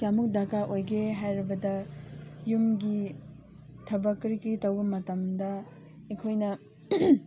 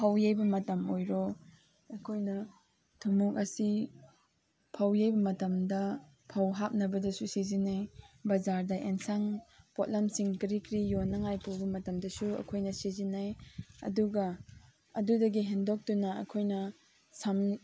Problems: background sounds at intervals, background conversations at intervals